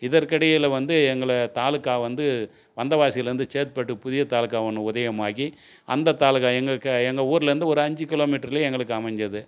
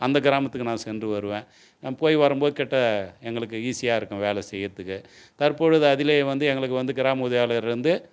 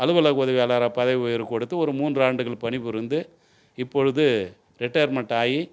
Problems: none marked